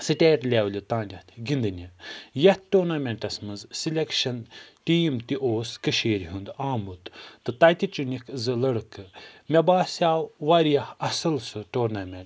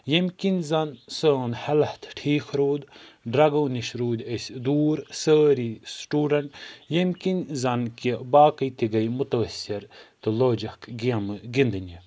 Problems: none marked